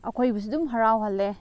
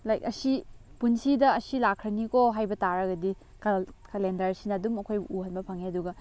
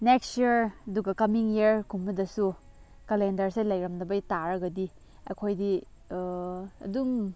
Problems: background sounds at intervals